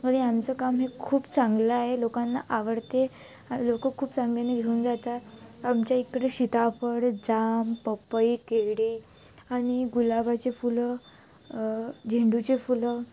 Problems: none marked